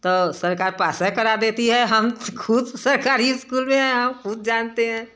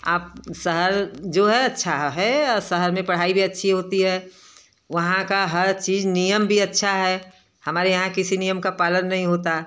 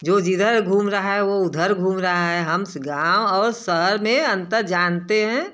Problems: none marked